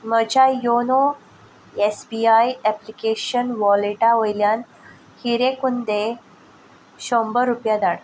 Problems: constant background noise